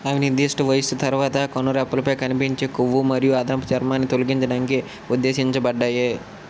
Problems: constant background noise